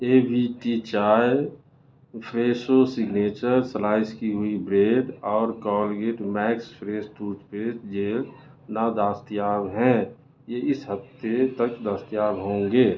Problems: constant background noise, low volume